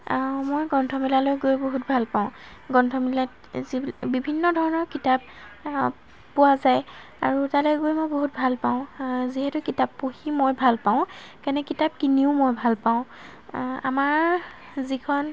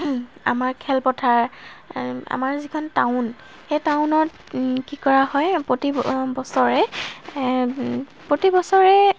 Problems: background sounds at intervals